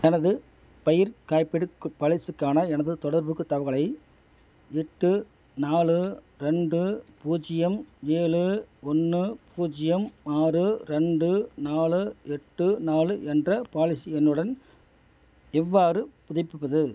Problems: none marked